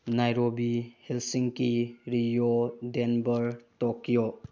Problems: low volume